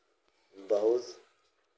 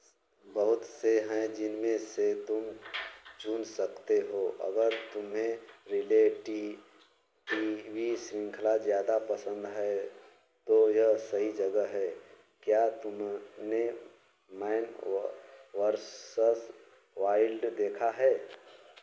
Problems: none marked